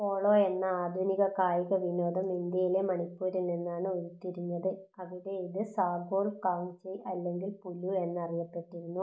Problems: low volume